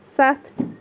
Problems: background sounds at intervals